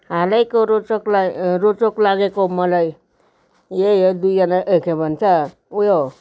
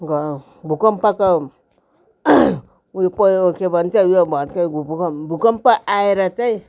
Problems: none marked